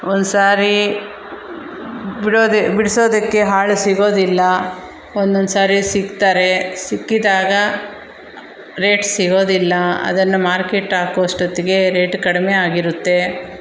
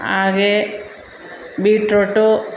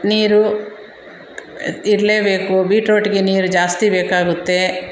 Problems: none marked